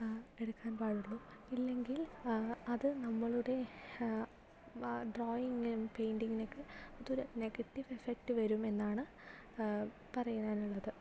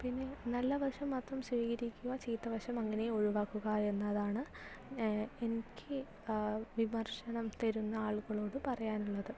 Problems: low volume